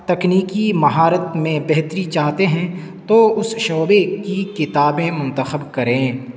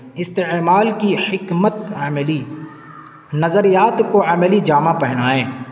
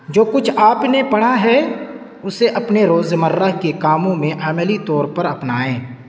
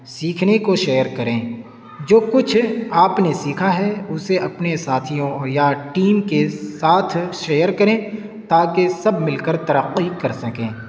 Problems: constant background noise